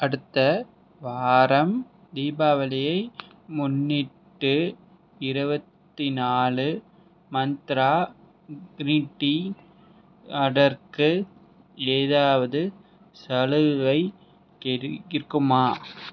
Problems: none marked